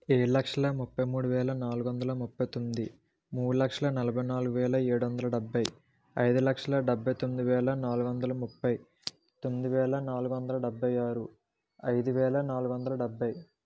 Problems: low volume